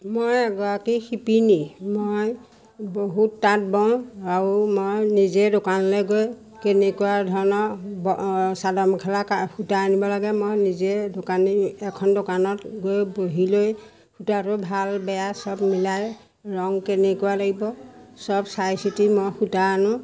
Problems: none marked